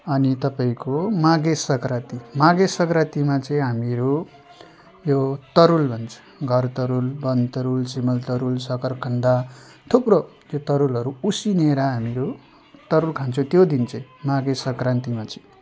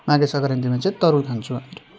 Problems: constant background noise